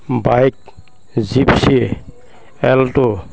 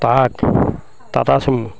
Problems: none marked